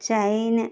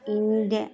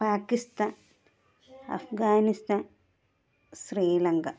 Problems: none marked